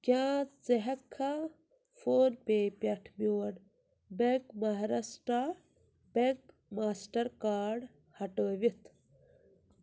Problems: low volume